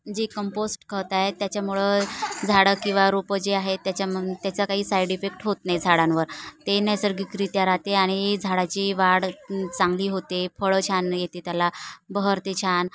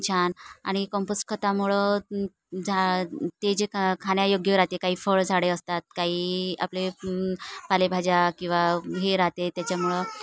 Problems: none marked